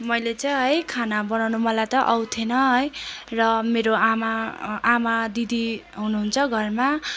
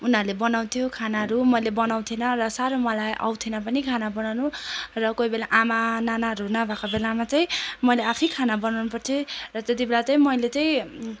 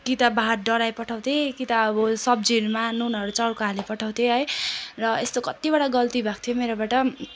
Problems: constant background noise